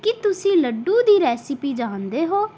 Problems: background sounds at intervals